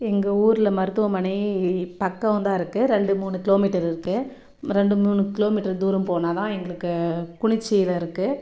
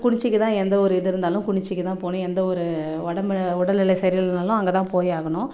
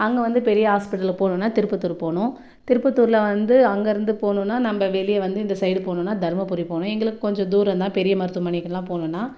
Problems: none marked